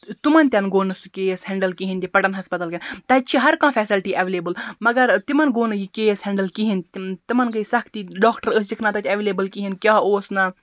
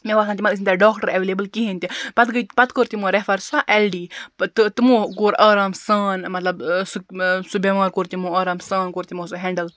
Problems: background sounds at intervals